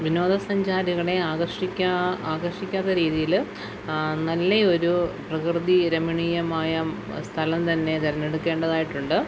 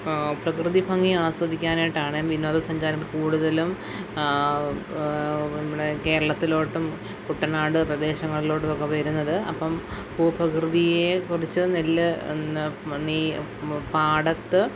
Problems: background sounds at intervals